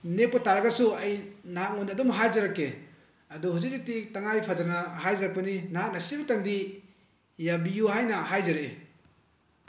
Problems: none marked